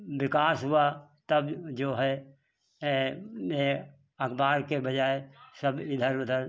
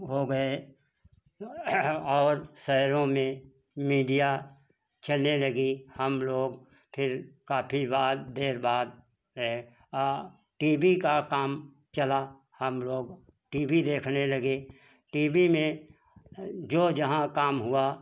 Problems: background sounds at intervals